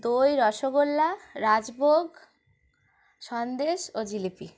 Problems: constant background noise